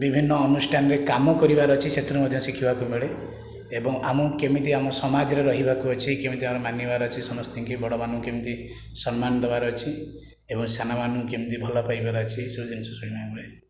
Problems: none marked